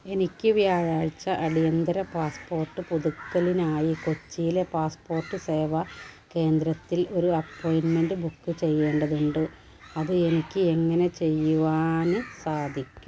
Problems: low volume